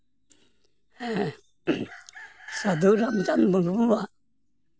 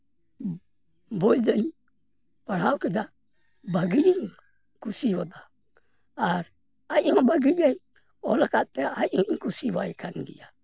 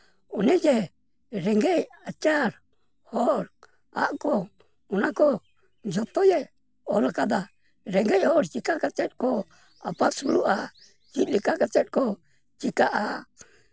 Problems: background sounds at intervals